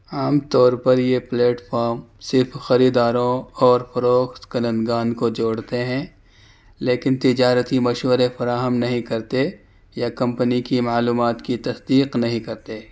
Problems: none marked